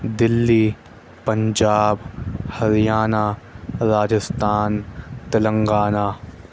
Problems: constant background noise